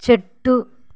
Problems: background sounds at intervals